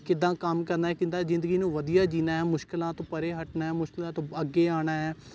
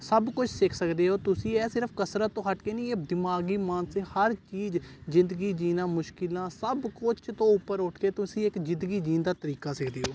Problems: none marked